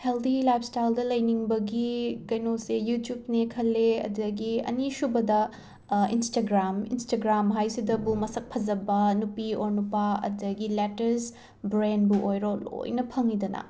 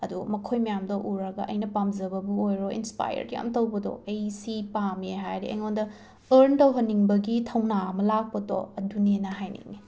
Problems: background sounds at intervals